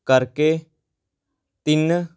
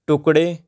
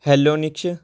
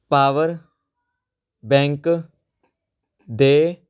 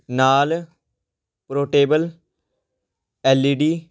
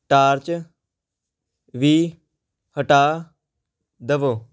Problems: background sounds at intervals